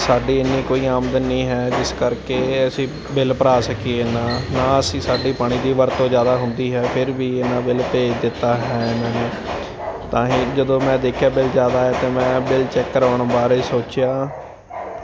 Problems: constant background noise